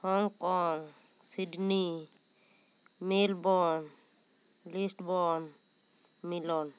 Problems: none marked